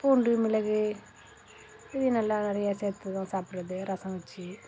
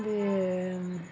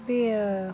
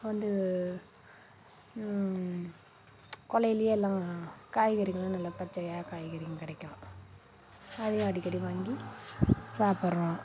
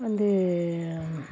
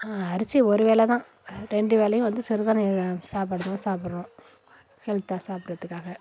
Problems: constant background noise